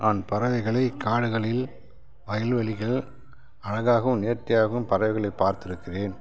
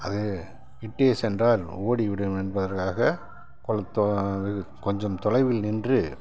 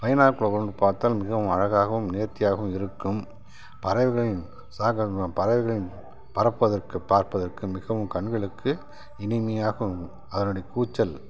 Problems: none marked